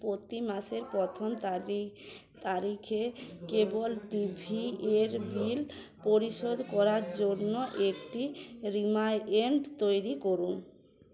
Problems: none marked